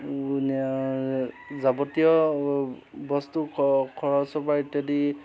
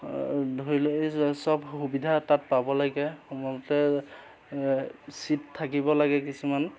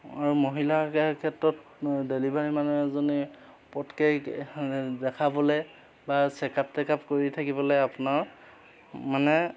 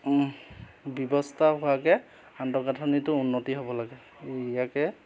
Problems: constant background noise